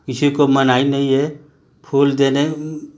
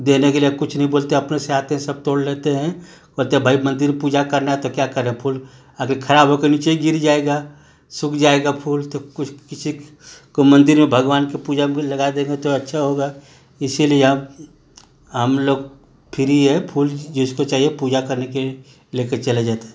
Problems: constant background noise